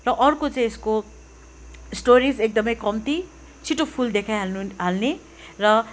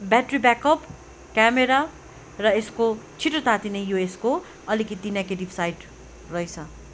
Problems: none marked